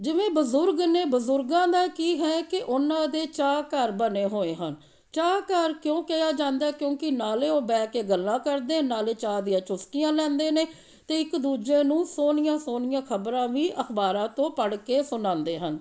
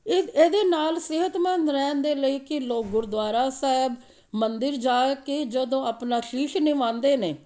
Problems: background sounds at intervals